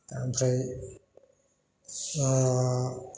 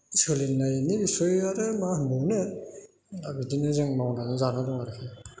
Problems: constant background noise